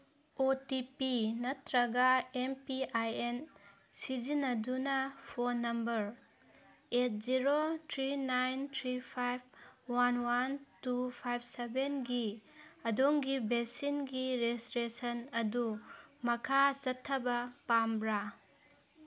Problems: none marked